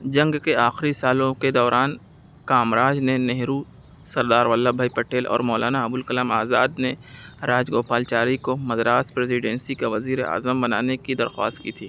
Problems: constant background noise